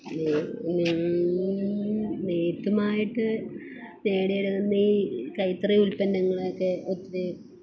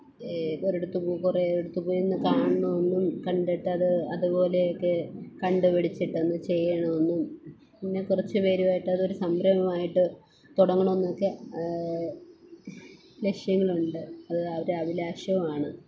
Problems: constant background noise